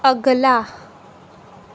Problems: background sounds at intervals